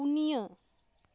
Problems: none marked